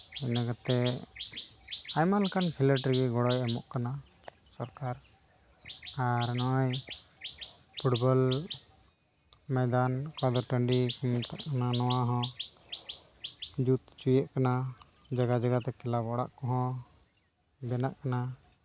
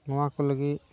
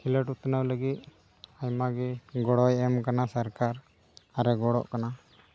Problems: constant background noise